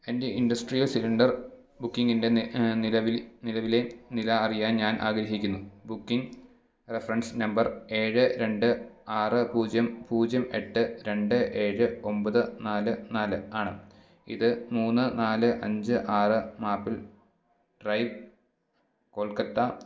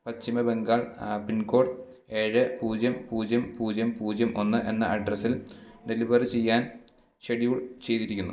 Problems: background sounds at intervals, background conversations at intervals